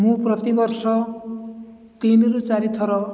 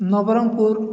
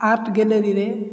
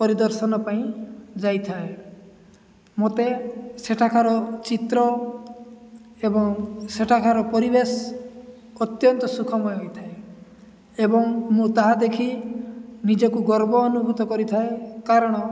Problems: none marked